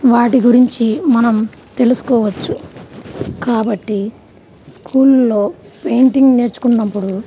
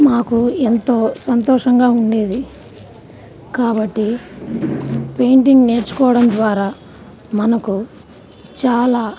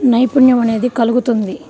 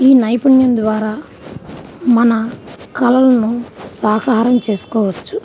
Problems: none marked